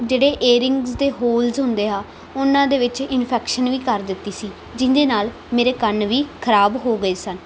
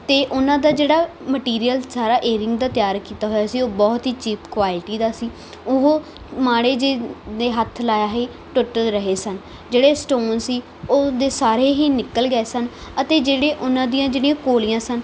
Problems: background sounds at intervals